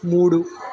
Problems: constant background noise